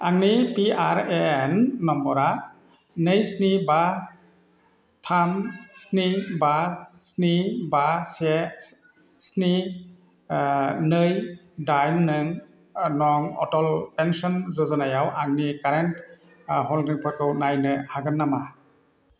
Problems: constant background noise